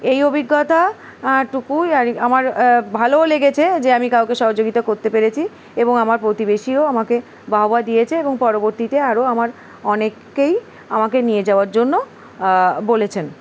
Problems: constant background noise